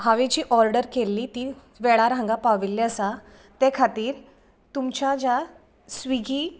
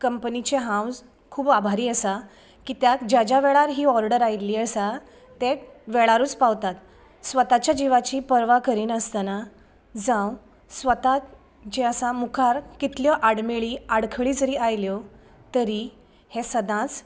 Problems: none marked